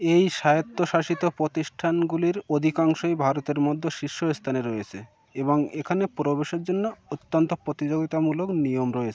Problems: none marked